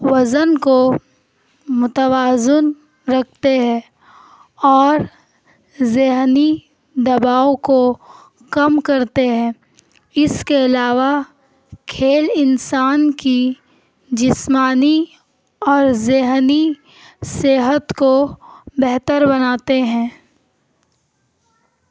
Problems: none marked